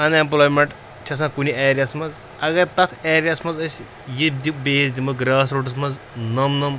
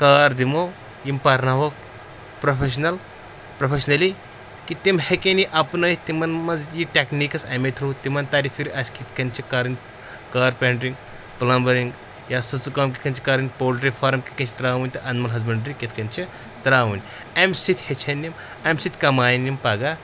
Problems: constant background noise